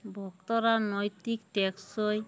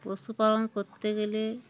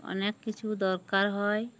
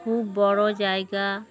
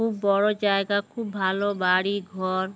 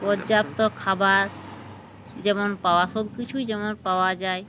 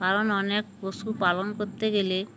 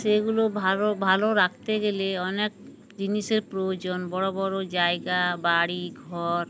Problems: background sounds at intervals